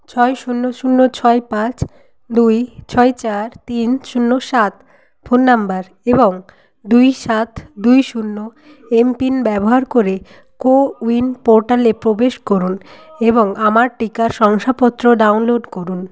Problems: background conversations at intervals